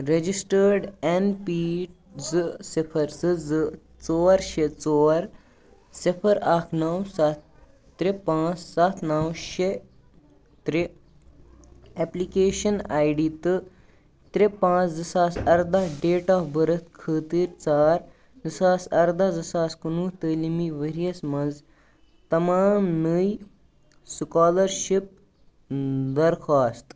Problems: background conversations at intervals